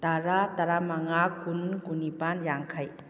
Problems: low volume